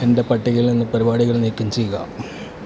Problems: constant background noise